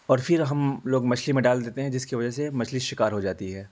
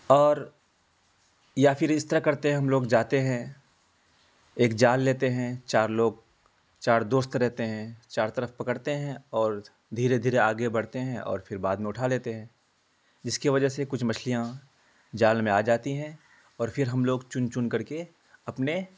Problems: constant background noise